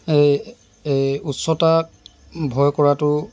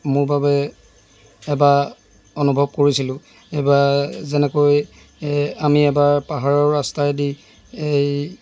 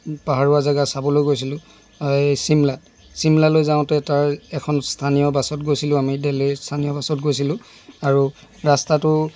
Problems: none marked